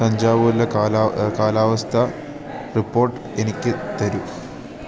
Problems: constant background noise